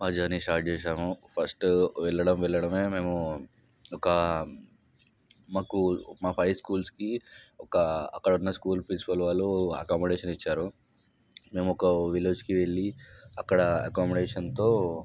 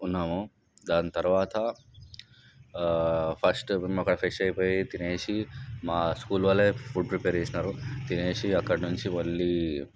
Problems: background sounds at intervals, background conversations at intervals